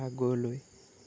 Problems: low volume